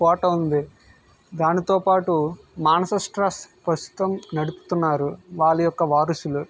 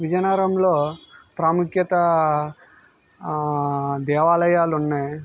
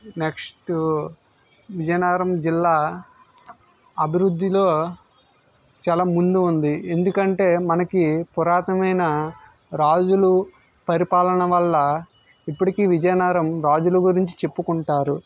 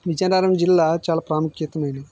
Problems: background sounds at intervals